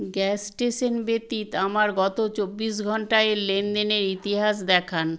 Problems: none marked